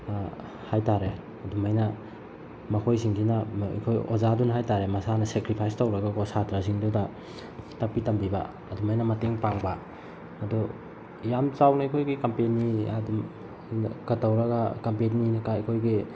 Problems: constant background noise